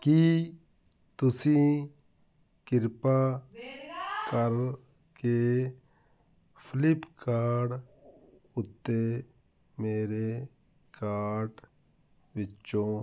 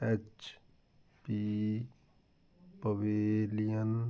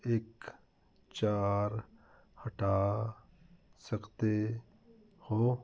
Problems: continuous background conversations